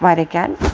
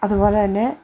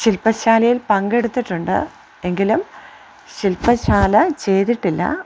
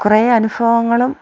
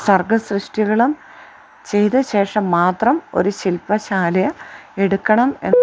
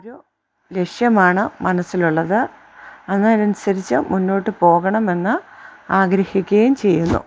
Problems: background sounds at intervals